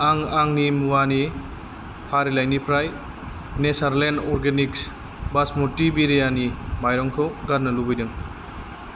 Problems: constant background noise